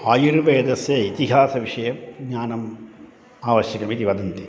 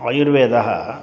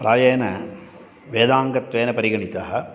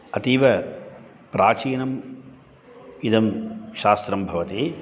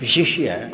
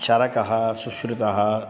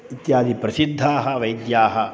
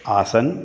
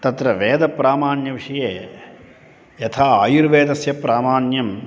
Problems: constant background noise